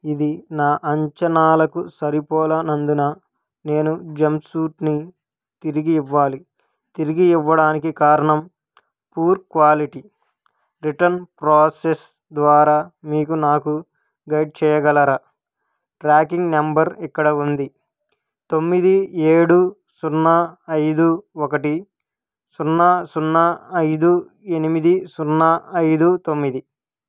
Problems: none marked